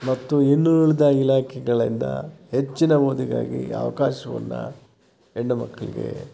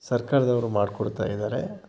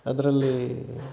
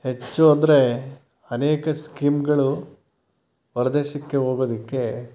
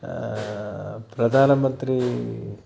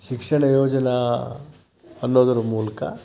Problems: constant background noise